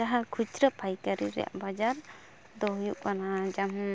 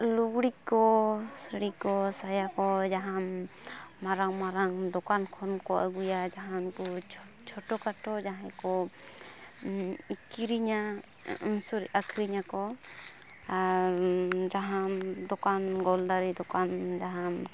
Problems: none marked